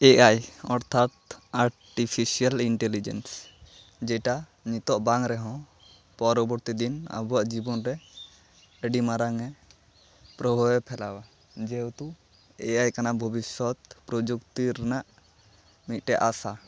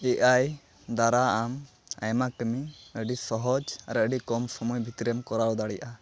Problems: constant background noise, background conversations at intervals